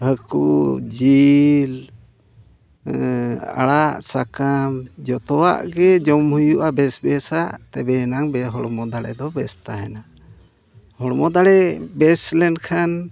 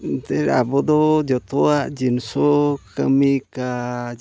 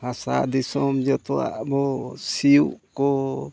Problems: background sounds at intervals